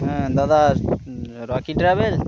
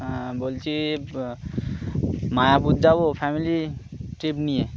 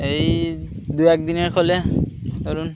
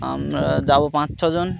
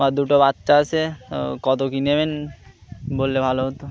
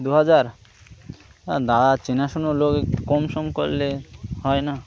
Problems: constant background noise, continuous background conversations